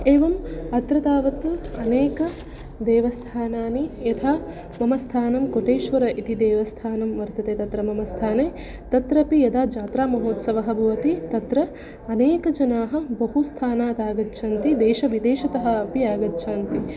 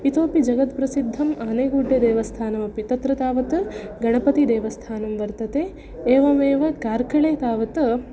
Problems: background sounds at intervals